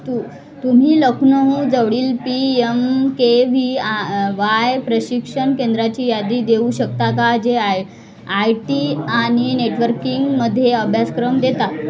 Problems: continuous background conversations